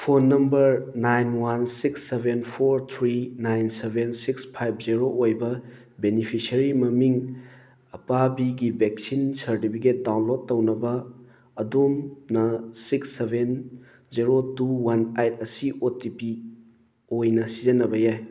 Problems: background sounds at intervals